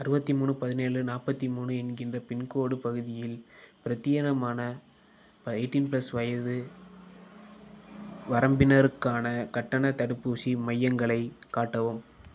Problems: background sounds at intervals